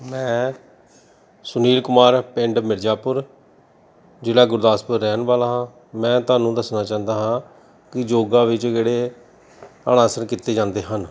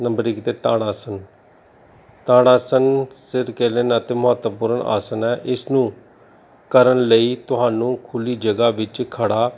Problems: background sounds at intervals